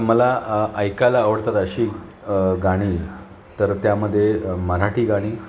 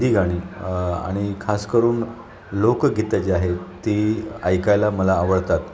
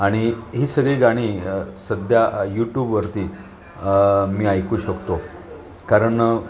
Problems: none marked